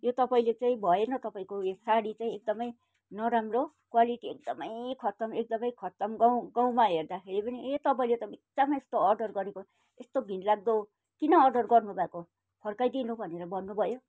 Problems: background sounds at intervals